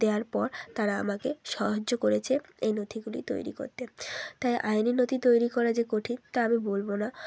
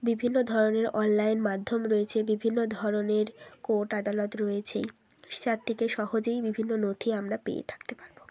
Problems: none marked